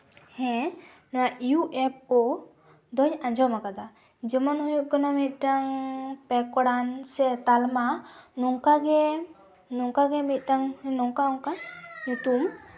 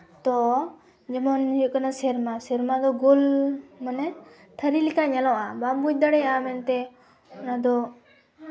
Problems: none marked